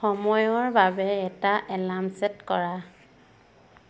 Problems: constant background noise